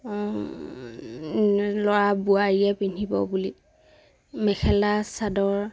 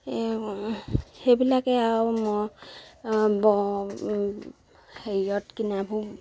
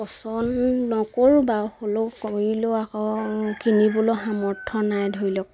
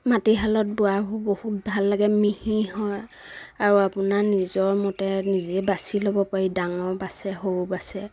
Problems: none marked